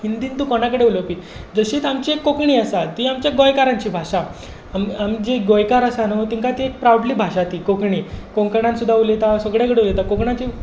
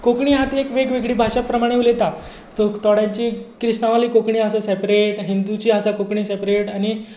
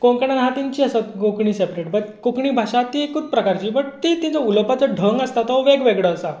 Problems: none marked